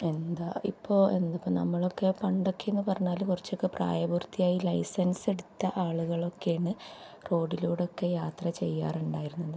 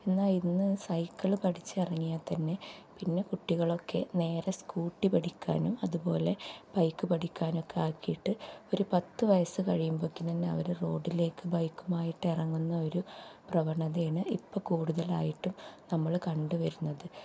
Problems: low volume